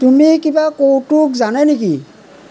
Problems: background conversations at intervals